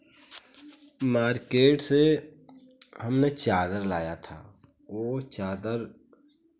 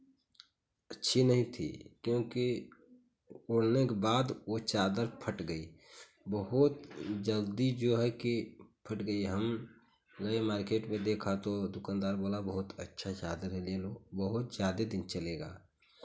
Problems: background sounds at intervals, continuous background conversations